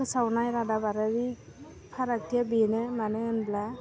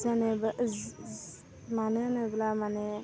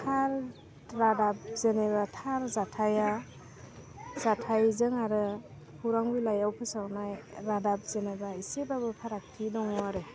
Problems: constant background noise